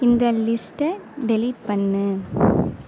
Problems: constant background noise